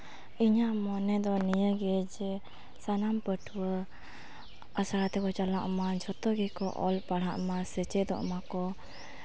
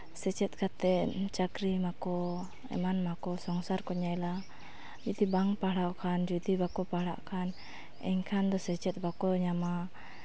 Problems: none marked